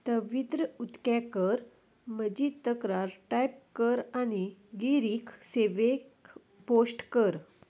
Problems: none marked